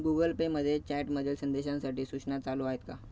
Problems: background sounds at intervals, low volume